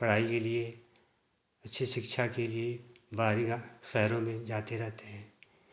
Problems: none marked